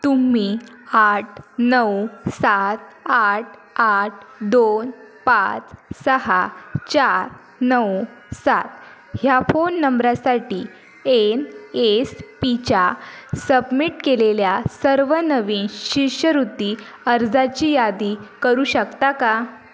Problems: constant background noise, continuous background conversations